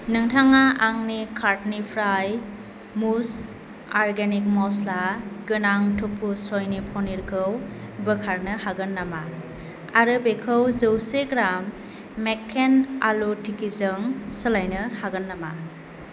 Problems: constant background noise